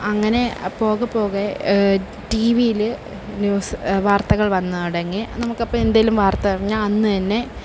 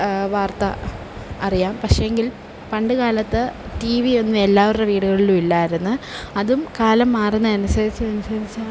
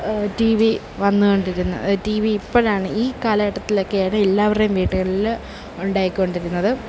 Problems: constant background noise, low volume